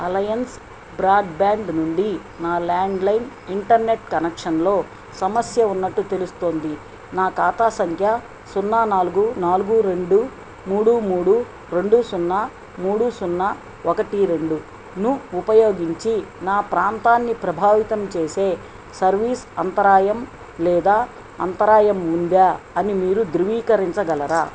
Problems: constant background noise